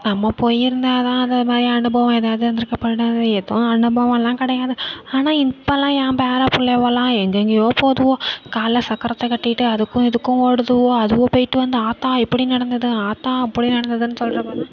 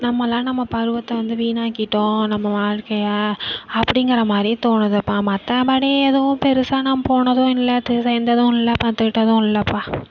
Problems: none marked